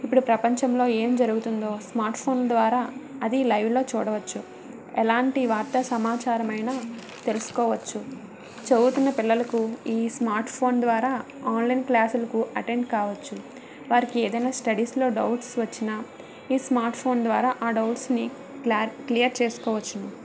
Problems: constant background noise